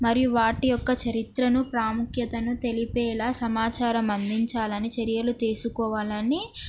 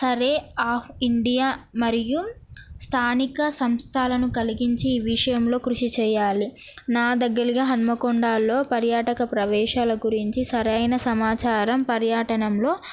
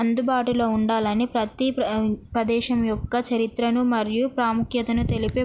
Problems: background sounds at intervals